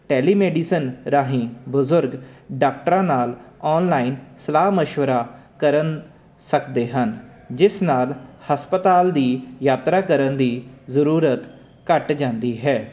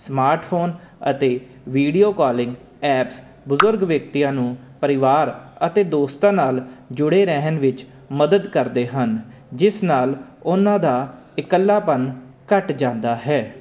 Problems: constant background noise